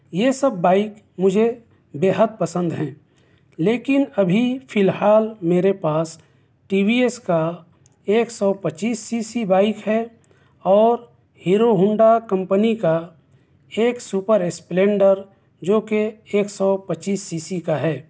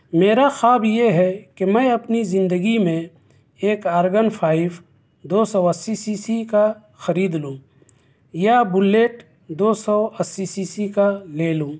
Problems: none marked